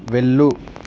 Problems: constant background noise